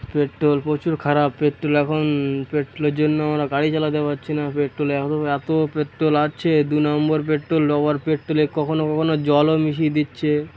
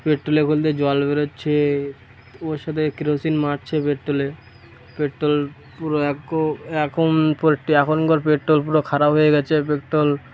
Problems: constant background noise